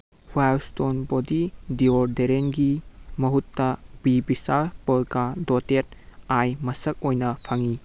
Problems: background sounds at intervals